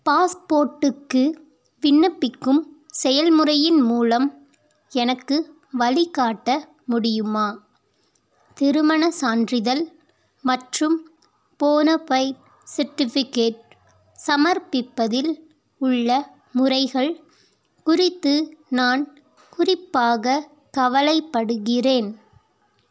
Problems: none marked